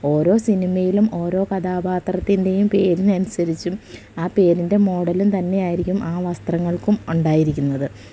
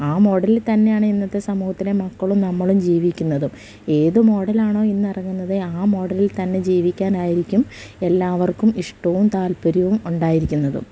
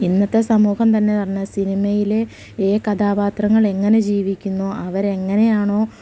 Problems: none marked